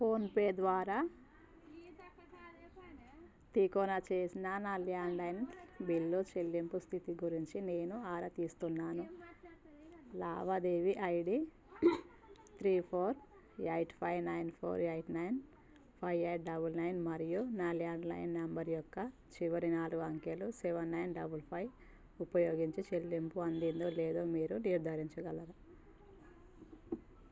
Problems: constant background noise, background conversations at intervals